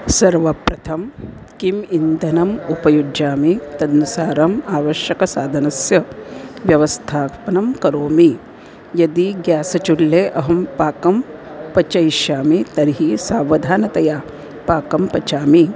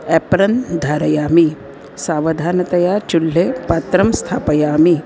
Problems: constant background noise